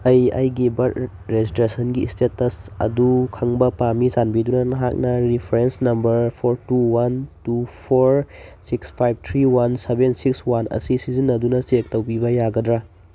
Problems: none marked